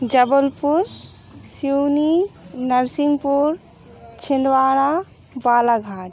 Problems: none marked